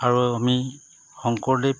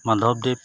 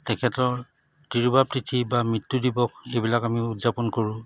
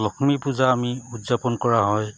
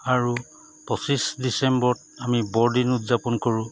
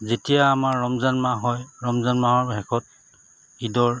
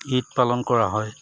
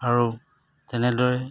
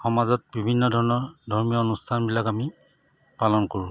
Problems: constant background noise